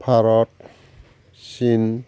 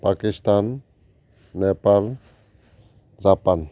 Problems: none marked